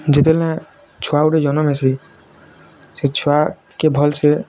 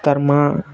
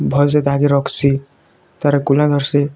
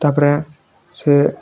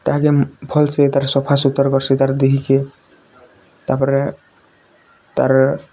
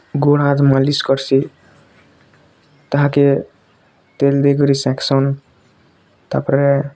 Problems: constant background noise, continuous background conversations